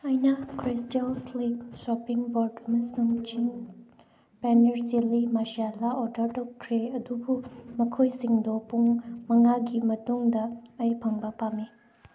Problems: background sounds at intervals